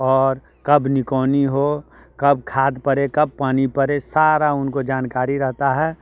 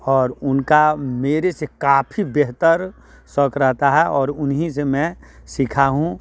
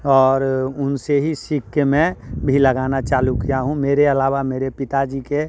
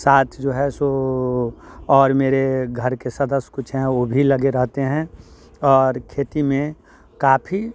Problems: background sounds at intervals